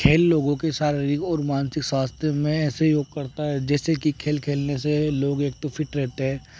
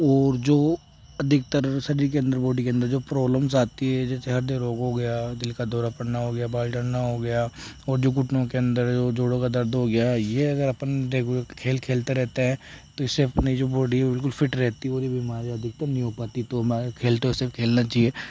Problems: background sounds at intervals